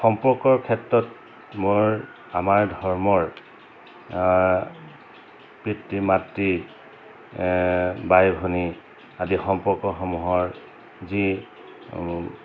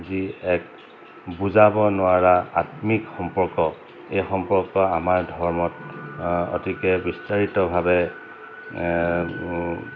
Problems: constant background noise